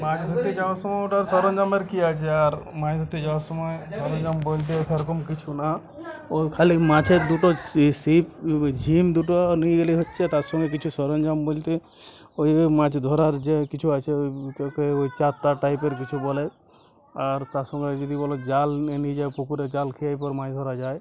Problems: constant background noise, background conversations at intervals